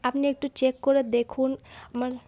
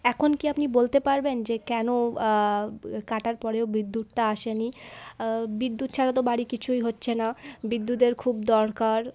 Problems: none marked